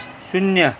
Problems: constant background noise